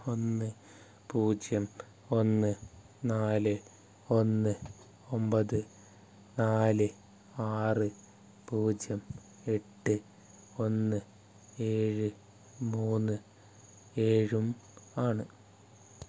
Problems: none marked